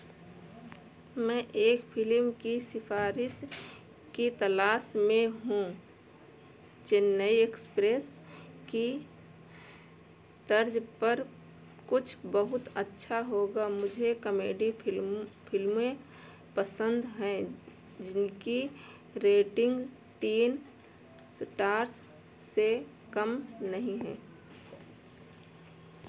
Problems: background sounds at intervals